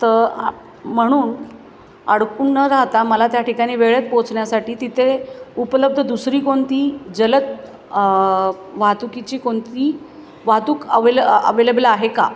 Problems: background sounds at intervals, background conversations at intervals, echo